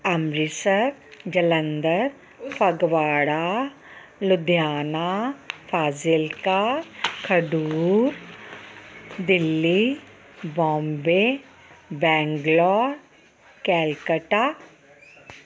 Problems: none marked